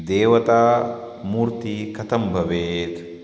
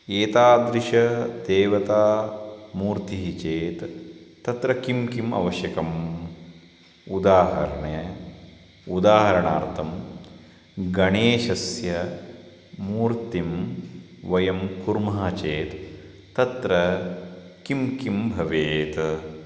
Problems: constant background noise